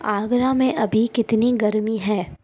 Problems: none marked